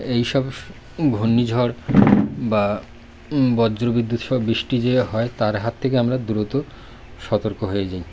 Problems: constant background noise